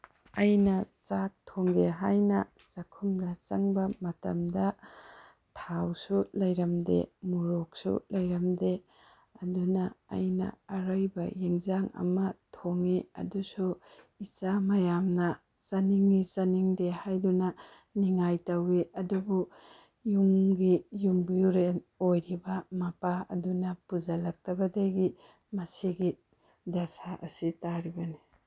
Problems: none marked